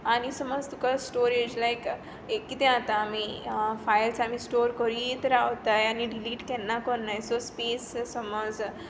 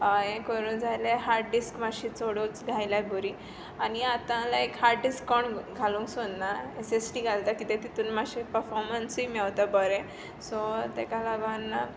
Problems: constant background noise